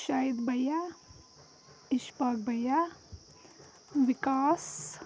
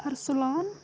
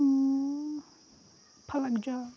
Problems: none marked